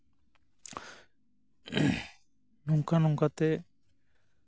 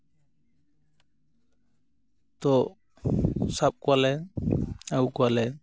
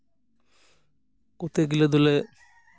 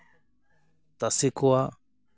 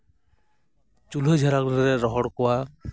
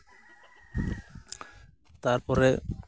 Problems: background sounds at intervals